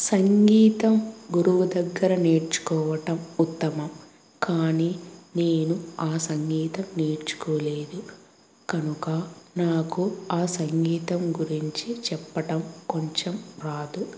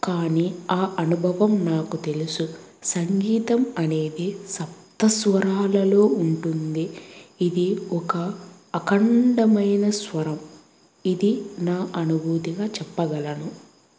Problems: constant background noise